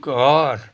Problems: none marked